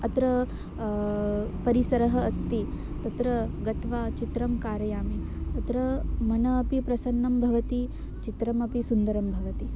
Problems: constant background noise